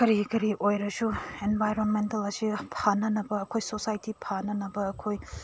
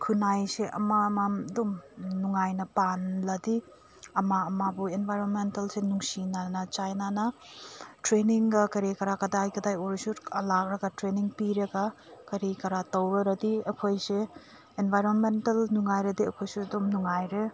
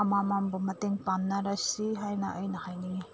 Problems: none marked